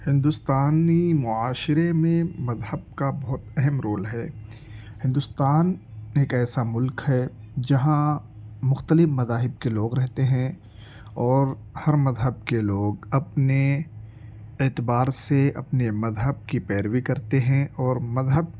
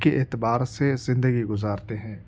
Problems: constant background noise